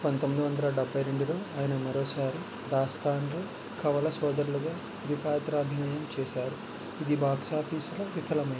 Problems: constant background noise, low volume